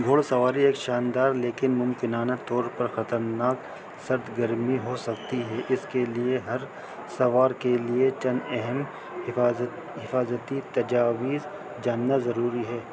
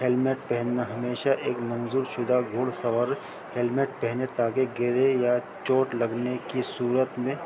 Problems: constant background noise